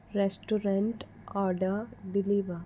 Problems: constant background noise